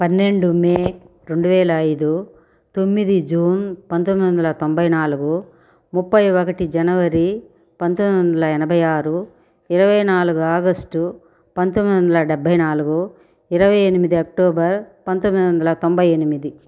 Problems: constant background noise